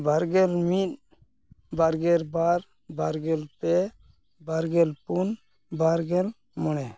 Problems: constant background noise